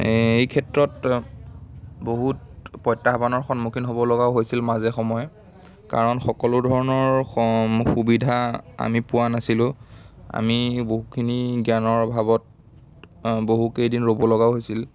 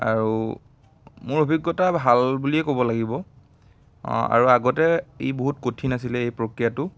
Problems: background sounds at intervals, background conversations at intervals